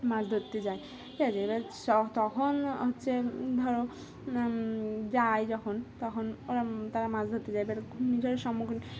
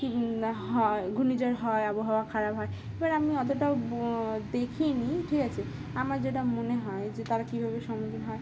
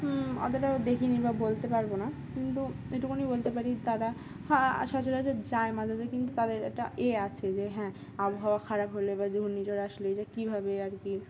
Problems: constant background noise